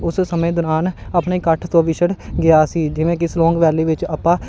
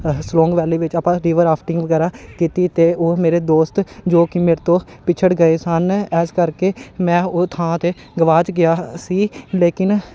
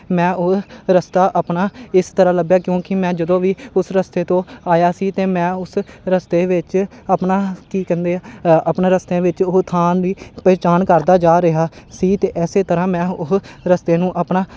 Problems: none marked